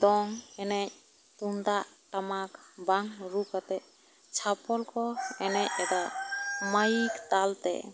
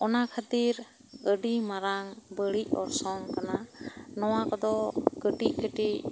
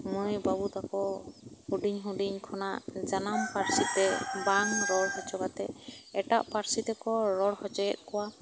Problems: background sounds at intervals